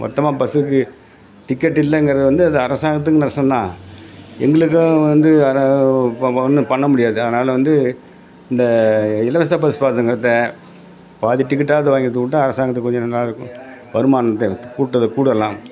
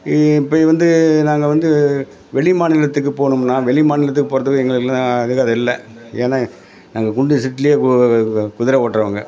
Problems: background conversations at intervals